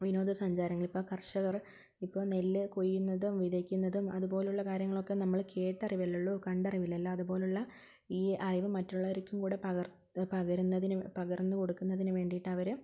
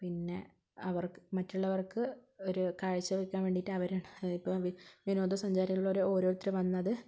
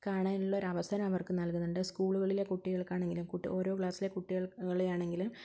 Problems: low volume